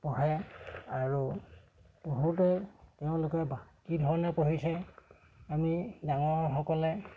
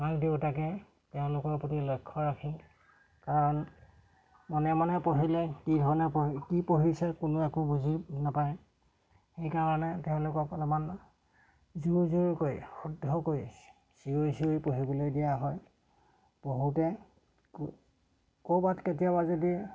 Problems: background sounds at intervals